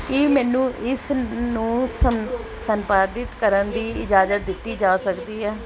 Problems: background conversations at intervals